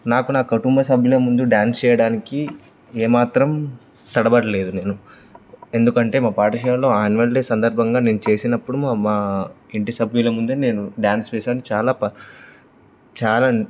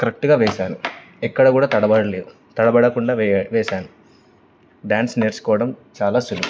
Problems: constant background noise